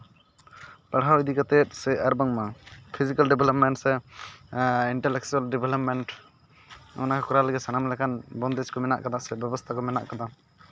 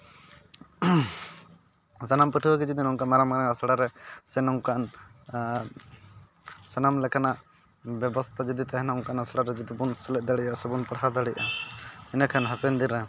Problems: constant background noise, background conversations at intervals